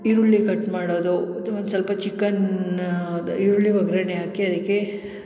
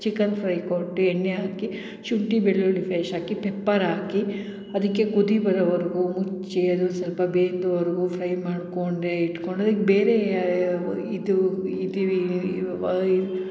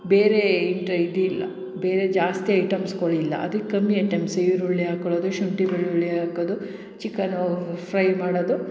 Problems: none marked